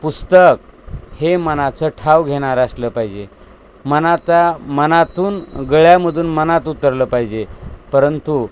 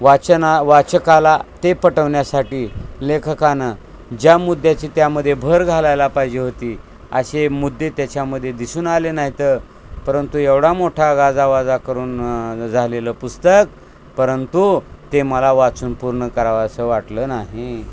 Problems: constant background noise